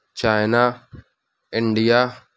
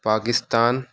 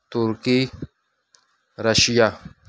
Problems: none marked